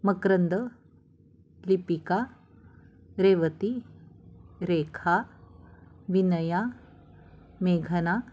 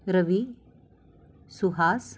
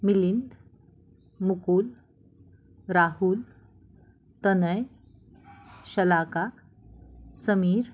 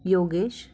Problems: constant background noise, background conversations at intervals